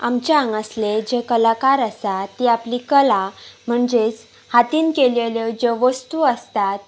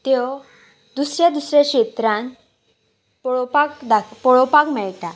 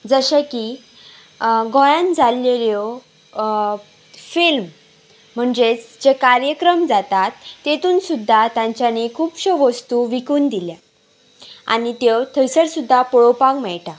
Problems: background sounds at intervals